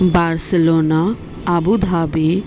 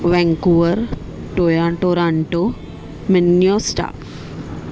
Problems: none marked